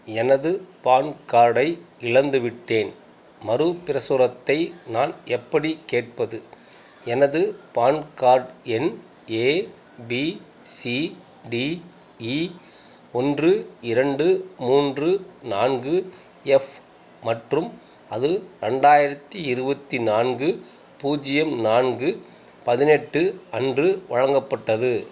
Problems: background sounds at intervals